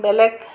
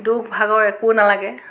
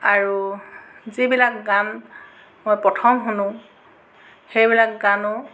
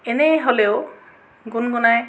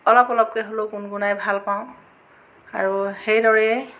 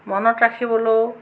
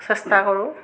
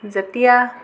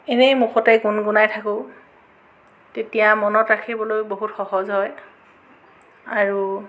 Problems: constant background noise